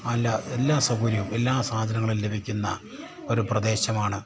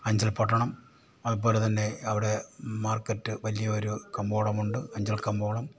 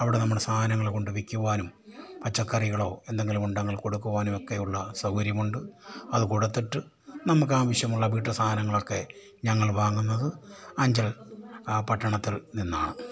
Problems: low volume